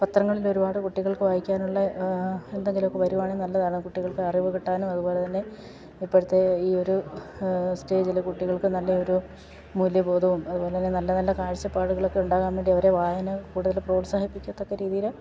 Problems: none marked